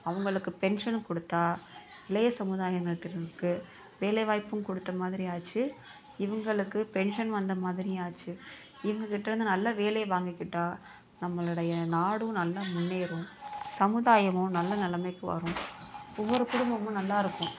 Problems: background sounds at intervals, continuous background conversations